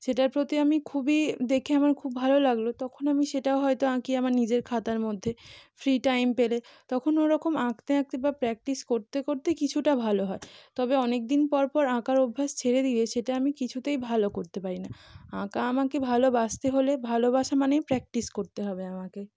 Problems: none marked